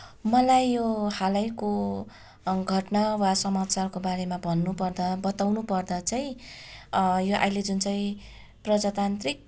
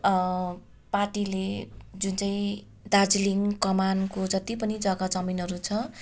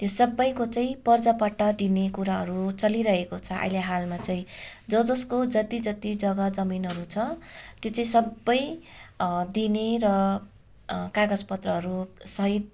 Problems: background sounds at intervals